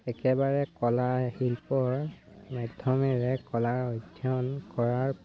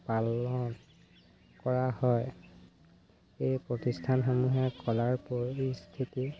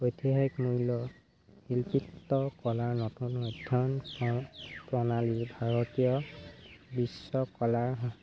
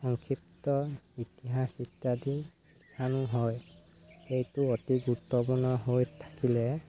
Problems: constant background noise